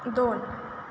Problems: constant background noise